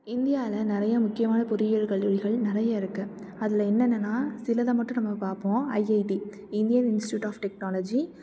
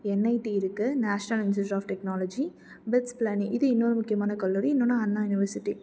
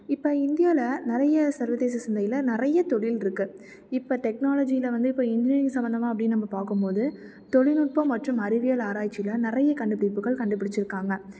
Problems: none marked